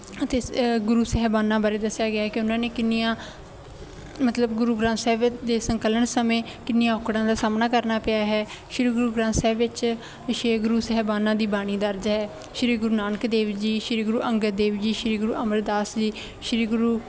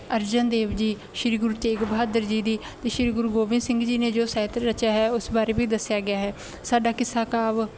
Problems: none marked